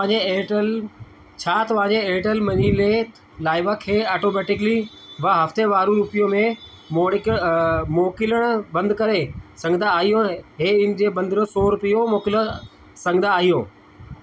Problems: constant background noise, echo